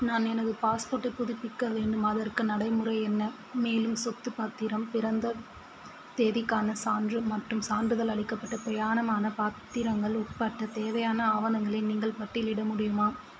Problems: constant background noise